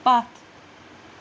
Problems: none marked